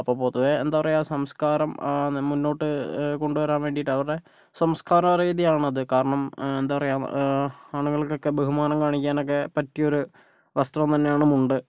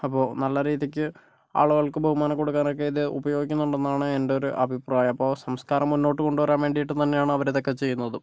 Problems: none marked